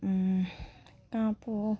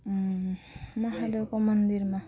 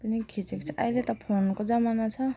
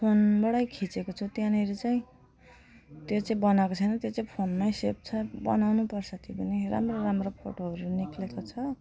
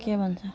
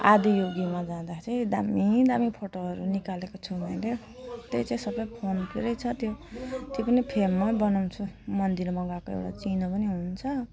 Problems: none marked